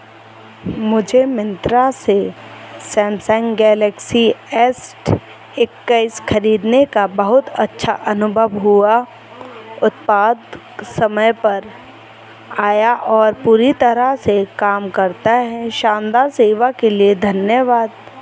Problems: none marked